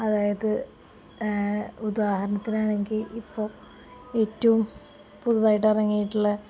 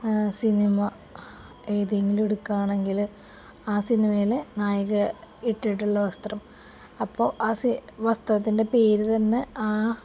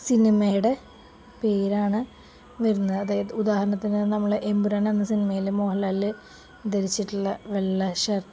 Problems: none marked